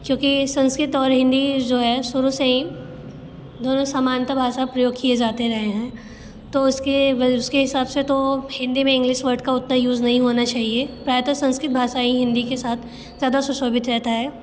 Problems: constant background noise